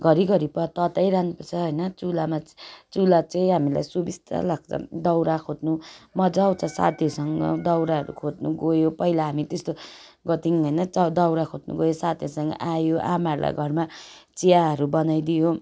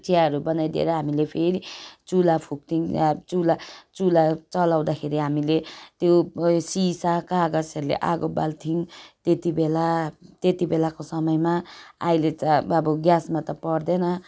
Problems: none marked